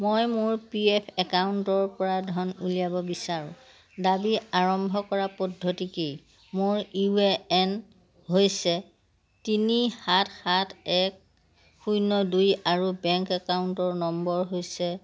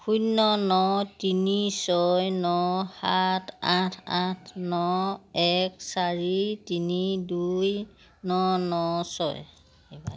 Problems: none marked